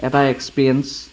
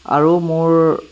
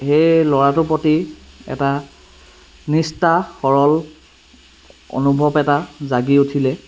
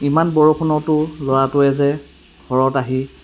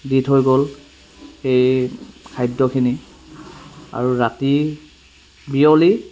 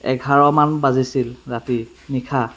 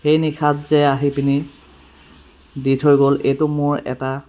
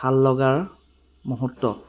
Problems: background sounds at intervals